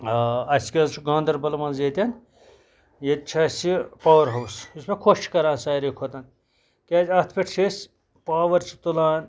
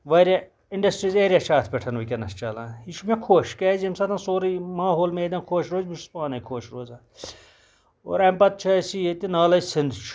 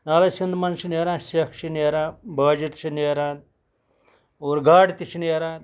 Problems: background sounds at intervals